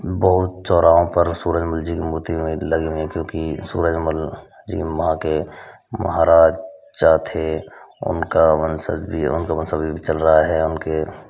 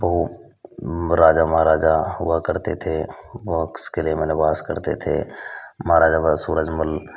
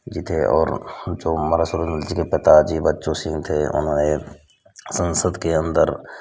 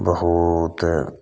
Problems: none marked